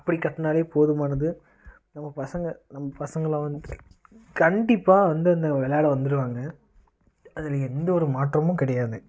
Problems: constant background noise